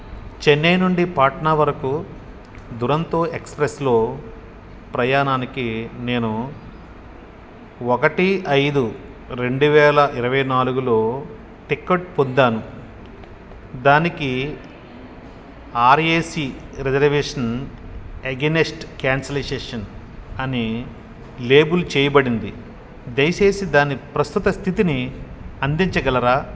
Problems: none marked